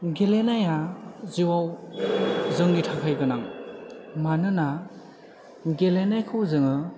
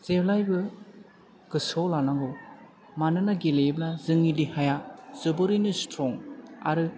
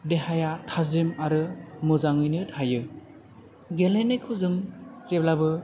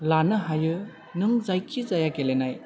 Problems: low volume